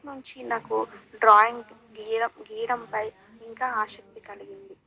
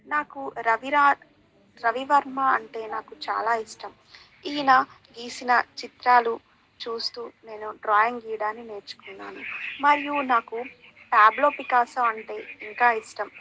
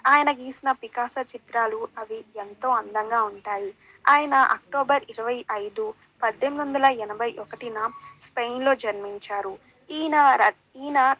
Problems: none marked